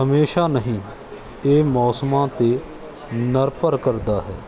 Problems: background sounds at intervals